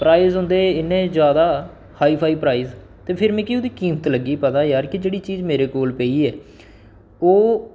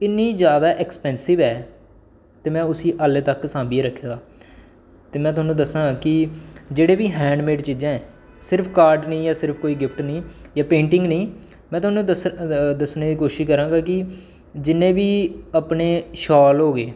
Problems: background sounds at intervals